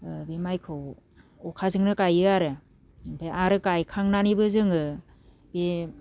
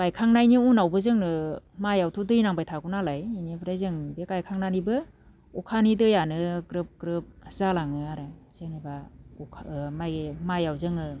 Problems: low volume